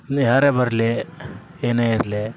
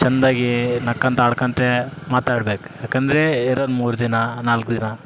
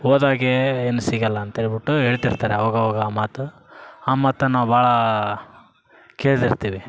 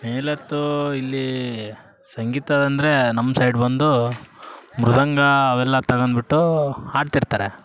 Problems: background sounds at intervals